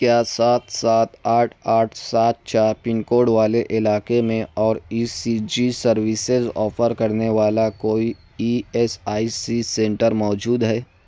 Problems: none marked